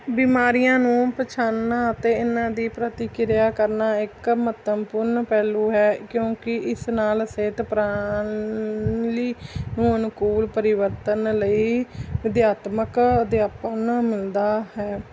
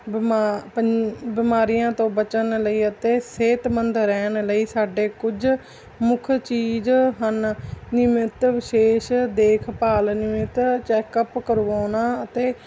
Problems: background sounds at intervals